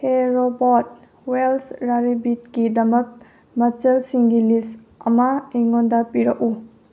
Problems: low volume